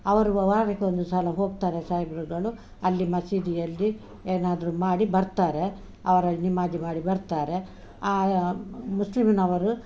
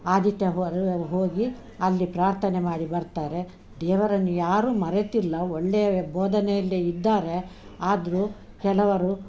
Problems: none marked